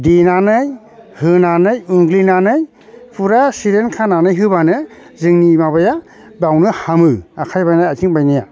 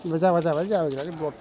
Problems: constant background noise